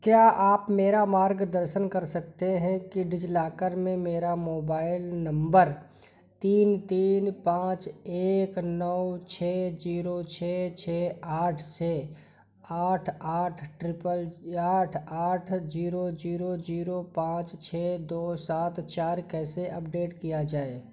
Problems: none marked